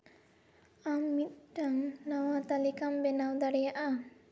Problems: background sounds at intervals, echo